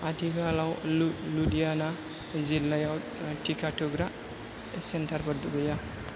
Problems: none marked